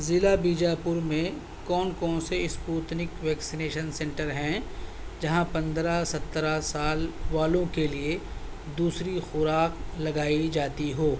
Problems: constant background noise